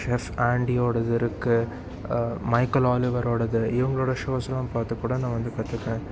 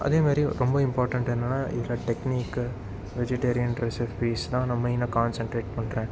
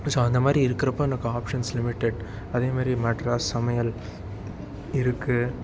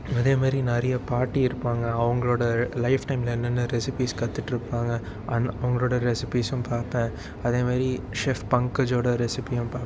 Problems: constant background noise